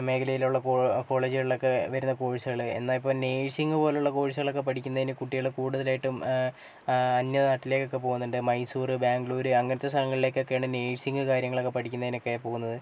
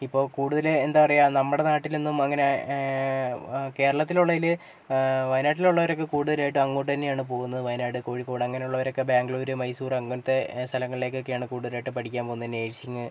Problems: low volume